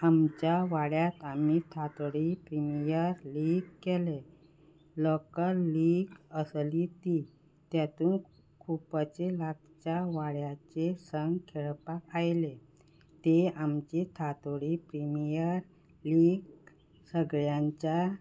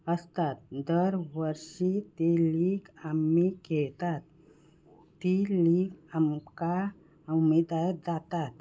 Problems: background sounds at intervals